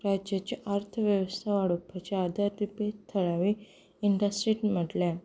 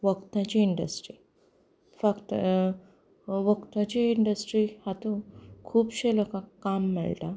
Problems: background sounds at intervals, background conversations at intervals